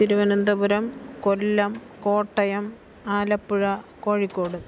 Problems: background sounds at intervals, background conversations at intervals